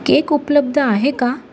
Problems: background sounds at intervals